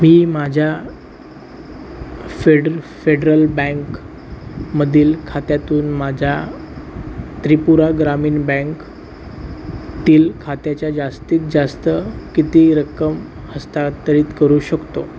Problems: none marked